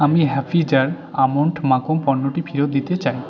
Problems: background conversations at intervals